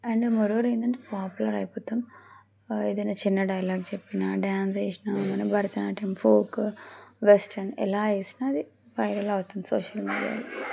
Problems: constant background noise